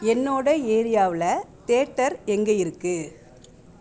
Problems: background sounds at intervals